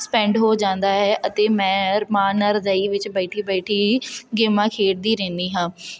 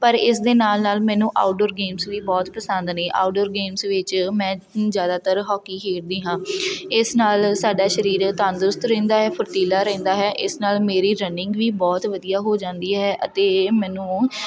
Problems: constant background noise, background conversations at intervals